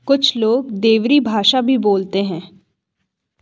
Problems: none marked